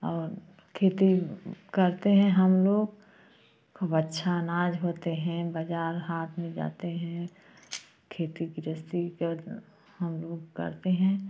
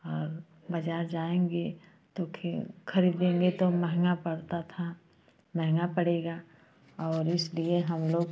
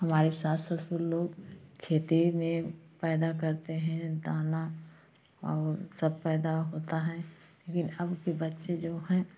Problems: constant background noise